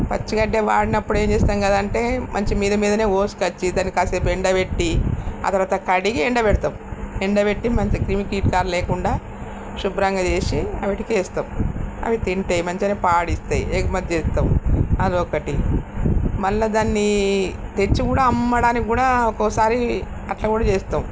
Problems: constant background noise